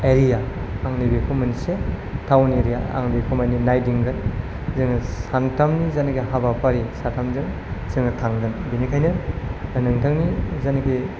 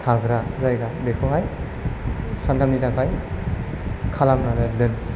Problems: low volume